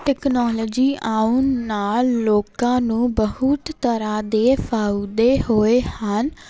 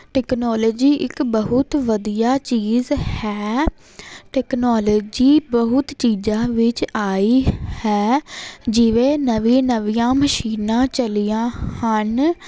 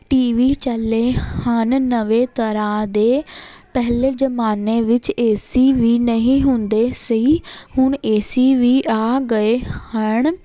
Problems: constant background noise